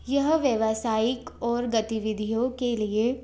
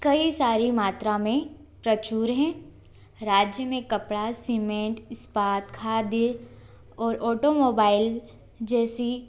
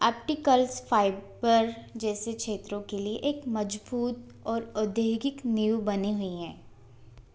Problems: constant background noise